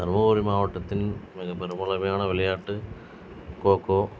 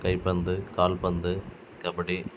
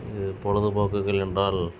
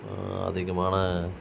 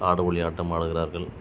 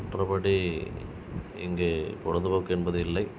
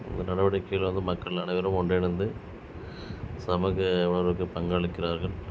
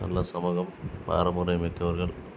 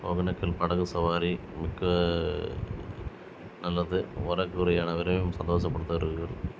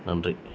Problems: constant background noise